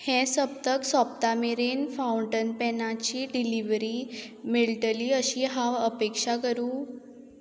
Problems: constant background noise